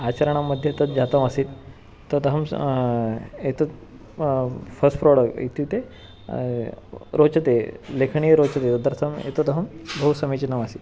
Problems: none marked